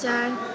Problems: constant background noise